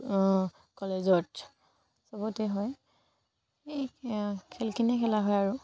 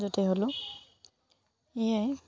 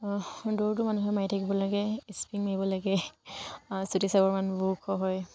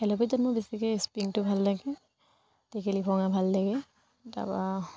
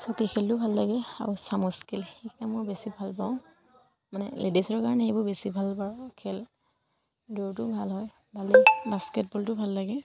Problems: none marked